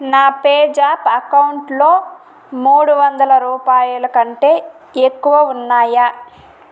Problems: constant background noise